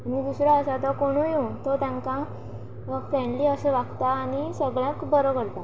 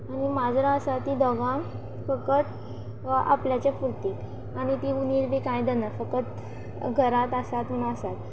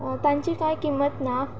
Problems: constant background noise